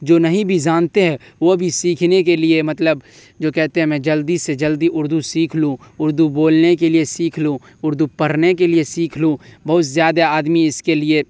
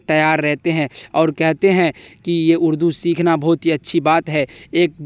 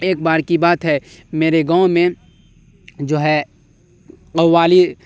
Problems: none marked